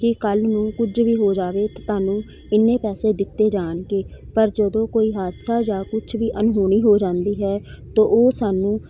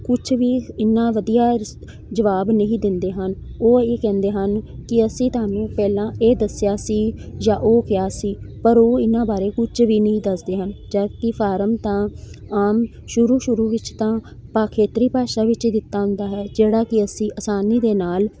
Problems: none marked